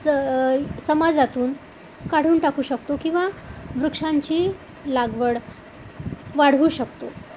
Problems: none marked